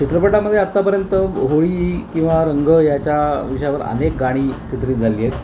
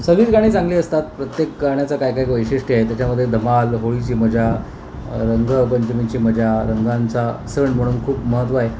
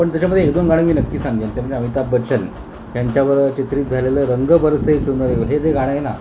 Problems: constant background noise